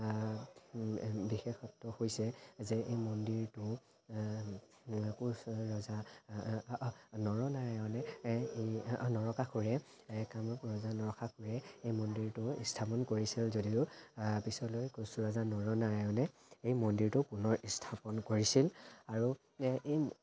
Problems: constant background noise, background conversations at intervals